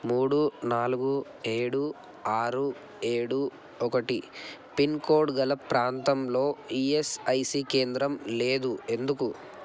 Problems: constant background noise